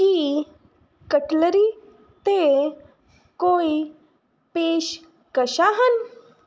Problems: none marked